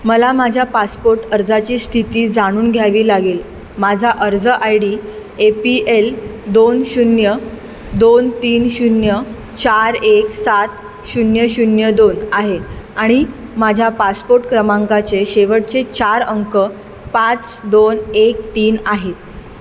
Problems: background sounds at intervals